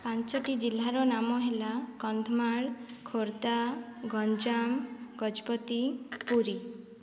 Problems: low volume